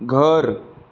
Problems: none marked